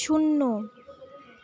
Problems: none marked